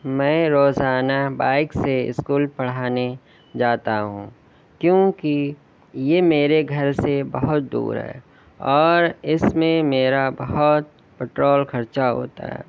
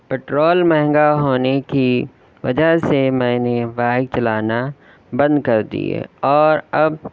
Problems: none marked